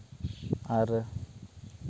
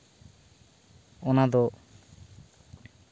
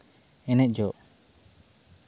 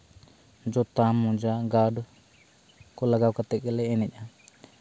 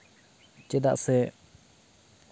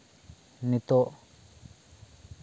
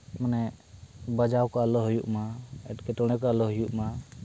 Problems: constant background noise